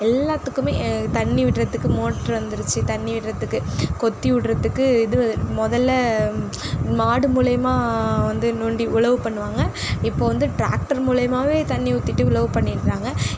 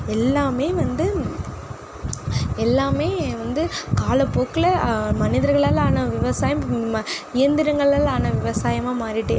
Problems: background sounds at intervals